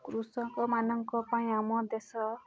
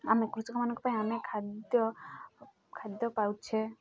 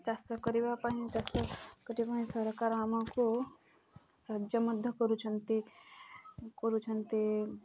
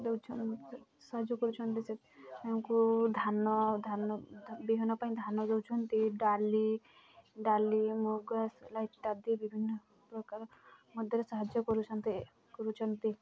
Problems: constant background noise, continuous background conversations